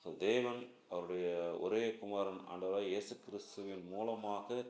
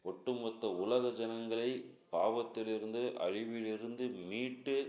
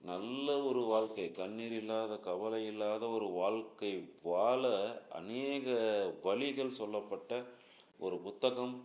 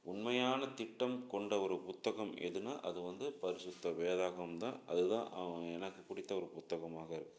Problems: background sounds at intervals